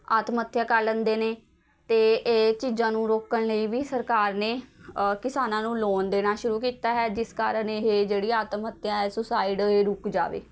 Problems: constant background noise, continuous background conversations